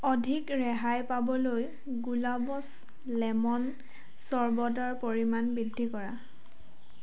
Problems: constant background noise, background conversations at intervals